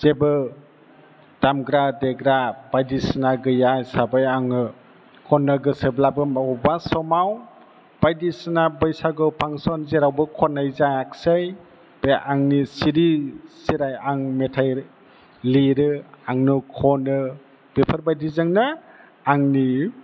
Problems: background sounds at intervals